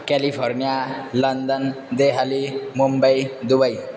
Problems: none marked